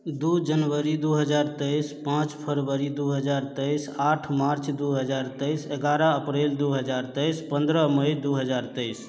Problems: constant background noise, background conversations at intervals